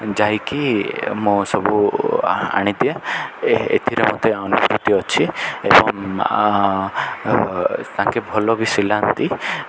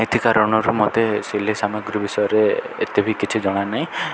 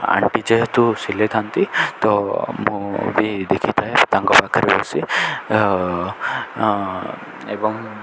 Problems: constant background noise